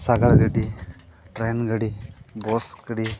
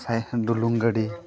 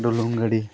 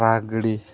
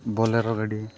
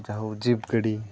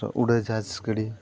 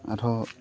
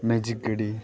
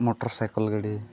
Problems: constant background noise, continuous background conversations